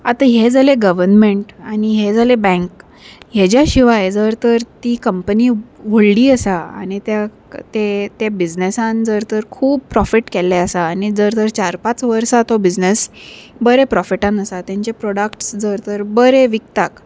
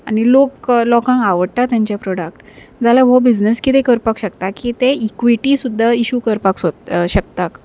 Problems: none marked